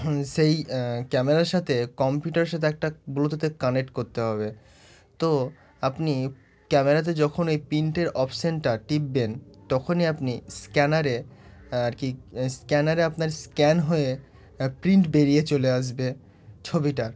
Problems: none marked